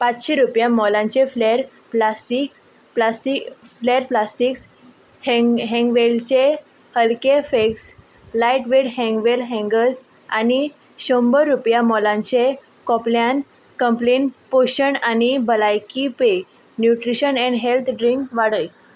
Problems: background sounds at intervals